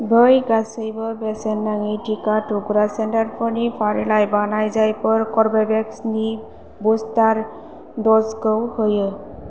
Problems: constant background noise